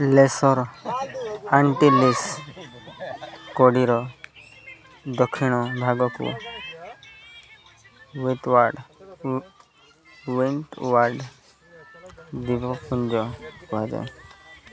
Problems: constant background noise, continuous background conversations